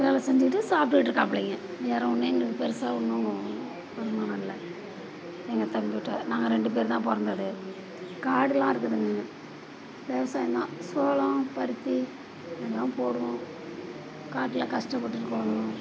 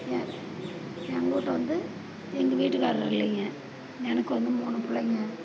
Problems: constant background noise